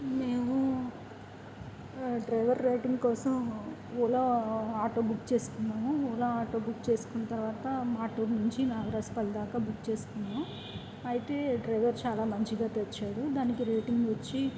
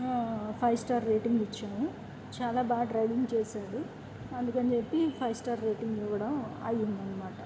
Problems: constant background noise